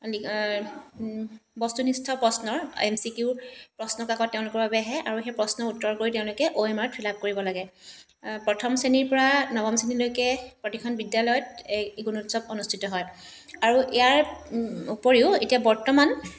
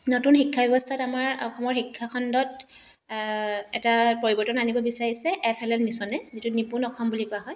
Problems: background sounds at intervals